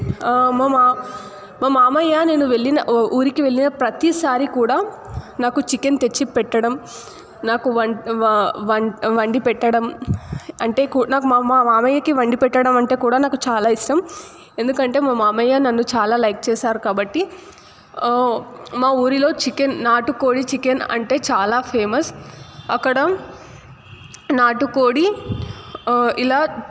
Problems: constant background noise